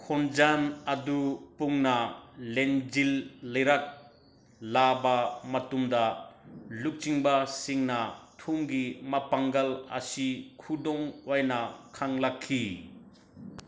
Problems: background sounds at intervals